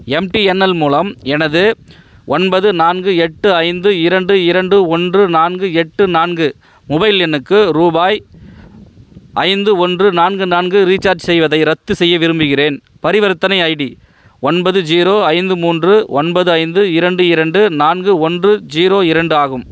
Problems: none marked